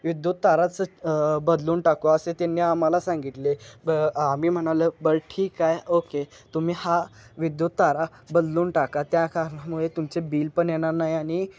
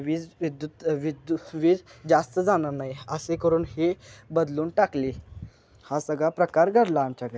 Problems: none marked